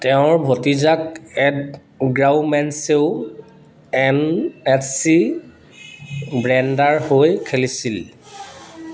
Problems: none marked